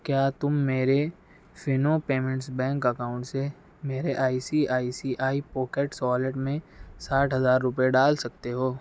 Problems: none marked